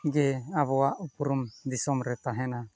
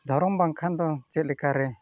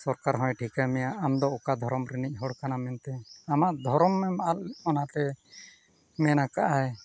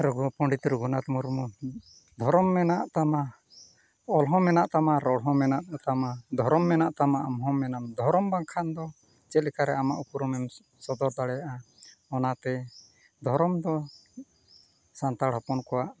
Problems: constant background noise